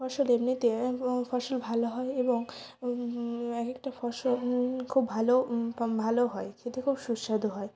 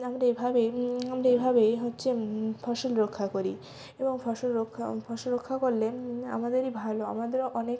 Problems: constant background noise, continuous background conversations